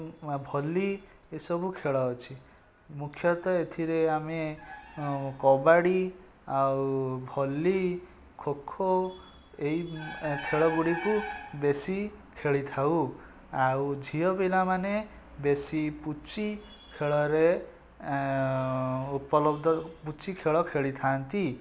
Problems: none marked